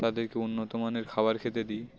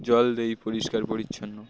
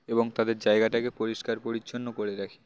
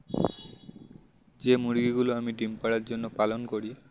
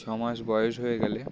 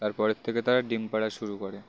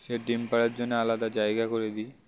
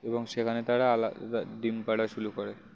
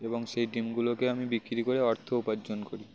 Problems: none marked